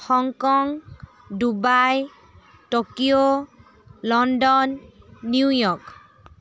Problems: none marked